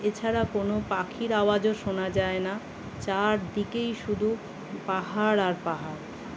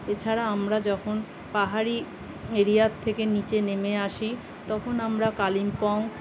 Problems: constant background noise, continuous background conversations